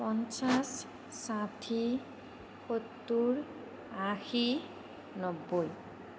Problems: none marked